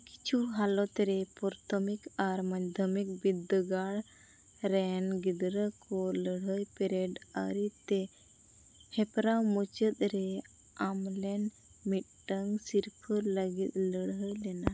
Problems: background sounds at intervals